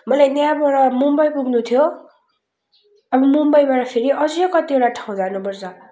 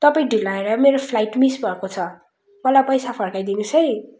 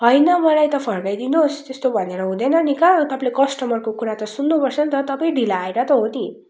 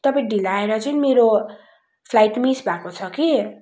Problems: constant background noise